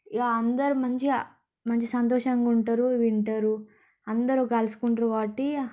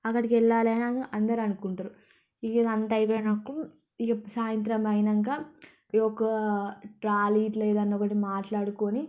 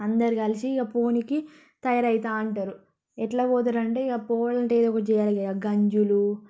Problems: background sounds at intervals, low volume